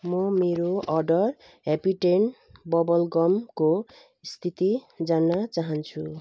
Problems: background sounds at intervals